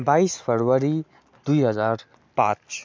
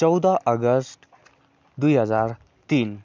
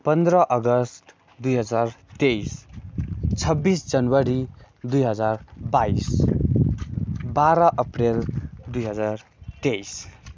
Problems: constant background noise